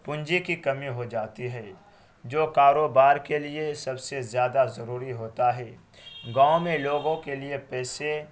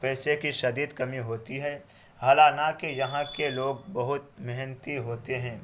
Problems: constant background noise